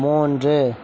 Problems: background sounds at intervals